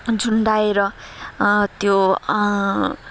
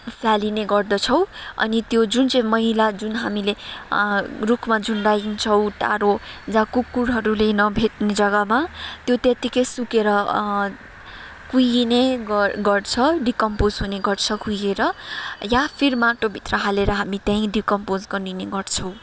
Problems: background sounds at intervals, background conversations at intervals